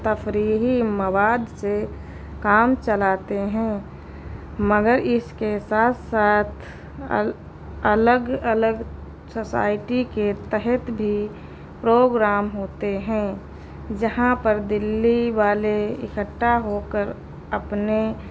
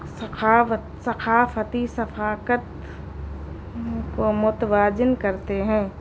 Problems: constant background noise